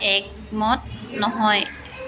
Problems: background sounds at intervals, background conversations at intervals